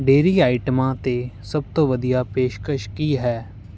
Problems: background sounds at intervals